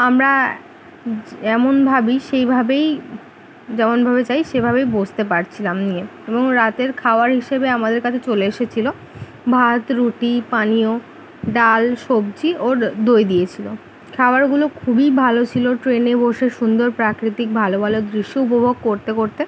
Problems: constant background noise